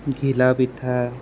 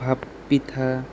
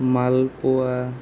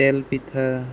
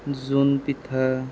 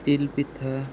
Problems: constant background noise